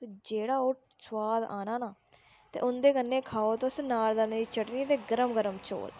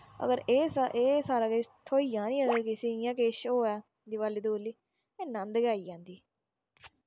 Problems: background sounds at intervals